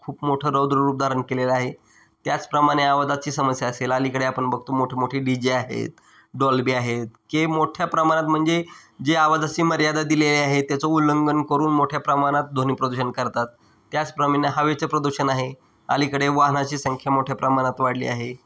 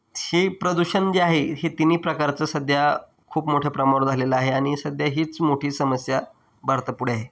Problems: background sounds at intervals